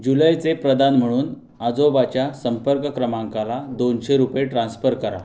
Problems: none marked